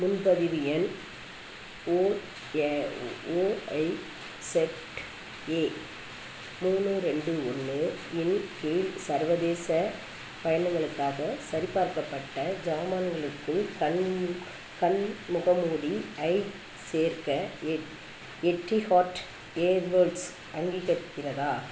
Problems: constant background noise